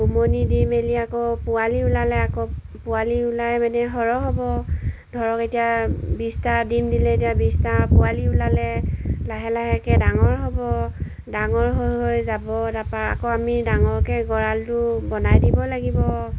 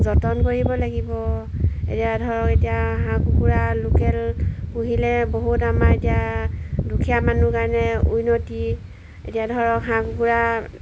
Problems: background sounds at intervals